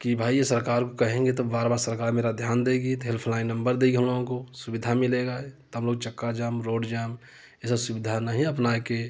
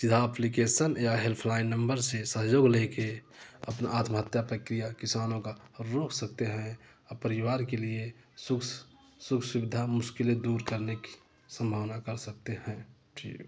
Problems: none marked